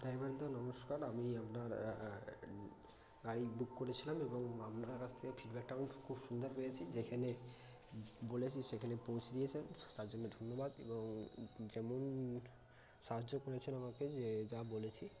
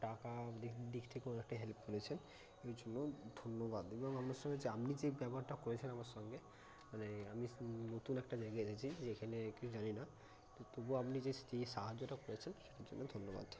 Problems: constant background noise, background conversations at intervals